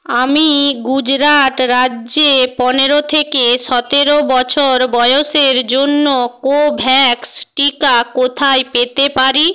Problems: none marked